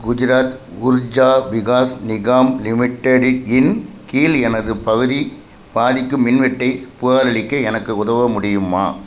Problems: constant background noise